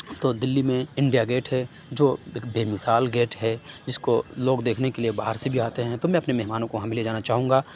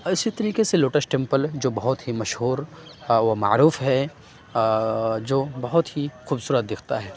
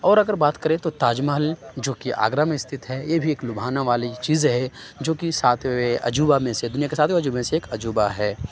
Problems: background sounds at intervals